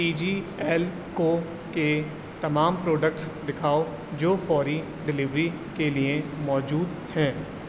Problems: constant background noise